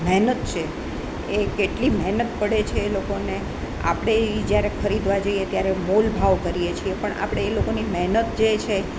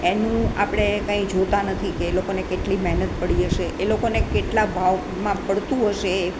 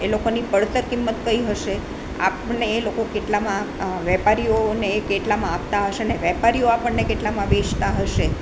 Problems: none marked